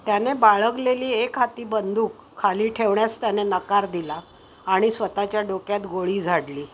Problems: constant background noise